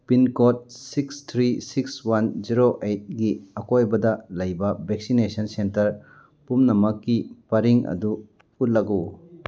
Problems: none marked